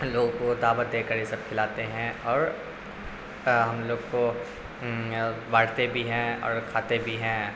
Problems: constant background noise, low volume